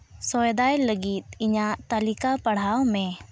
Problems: background sounds at intervals